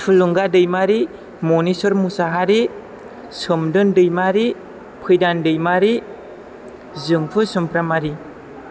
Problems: background conversations at intervals